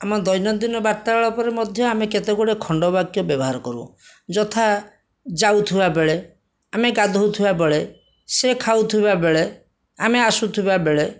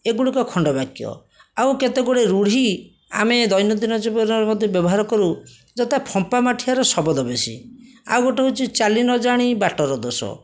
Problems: none marked